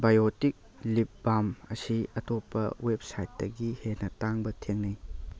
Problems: none marked